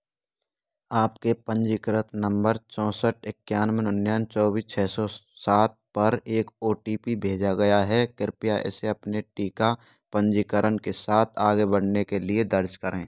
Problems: none marked